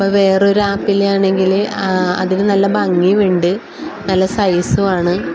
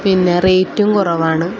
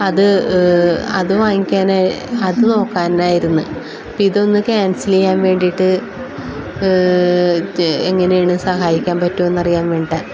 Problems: constant background noise